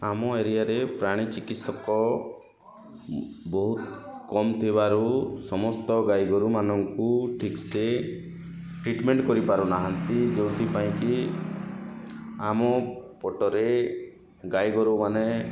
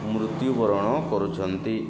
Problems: constant background noise